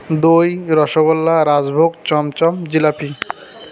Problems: constant background noise, continuous background conversations